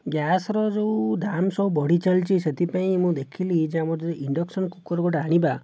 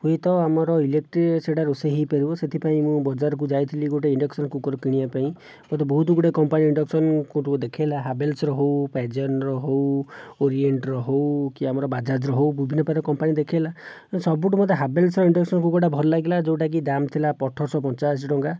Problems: none marked